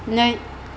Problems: constant background noise